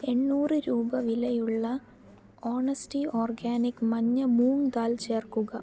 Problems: low volume